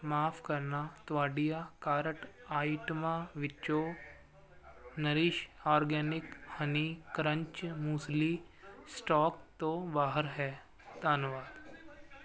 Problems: constant background noise